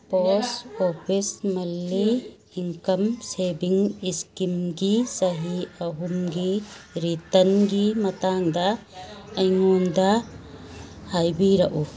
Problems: background sounds at intervals